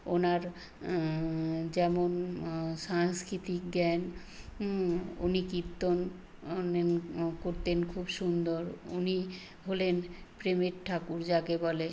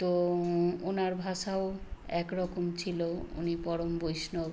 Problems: constant background noise